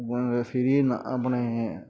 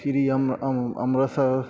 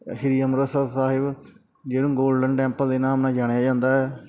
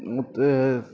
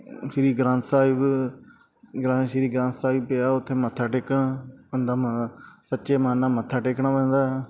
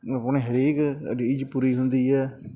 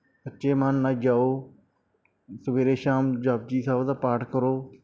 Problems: background sounds at intervals